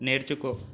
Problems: none marked